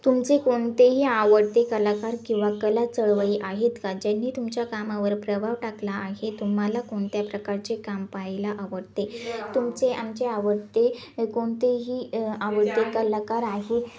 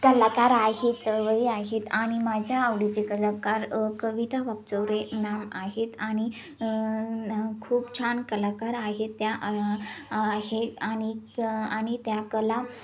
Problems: background sounds at intervals, continuous background conversations